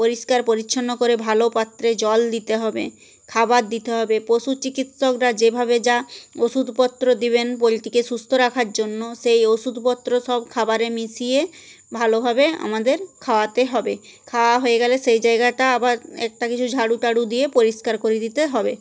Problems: none marked